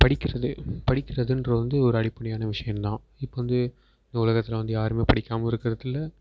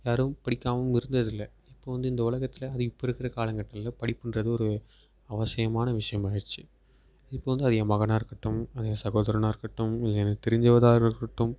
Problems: background sounds at intervals